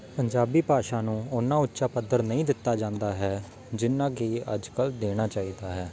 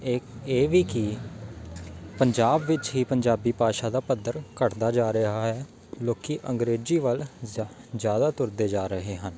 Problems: constant background noise